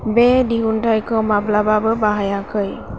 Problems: constant background noise